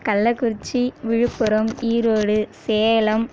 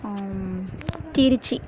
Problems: none marked